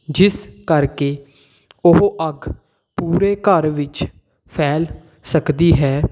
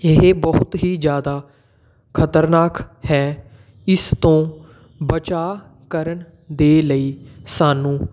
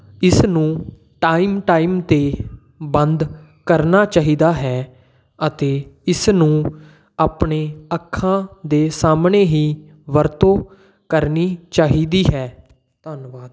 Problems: none marked